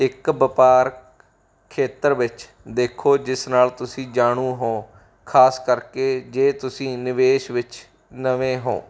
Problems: background sounds at intervals